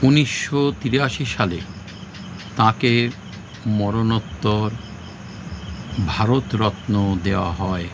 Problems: constant background noise